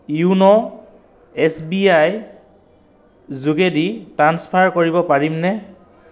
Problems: background sounds at intervals, echo